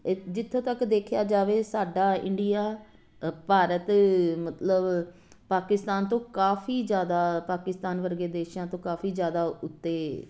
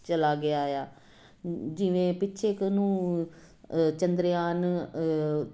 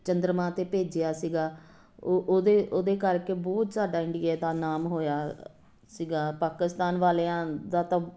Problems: none marked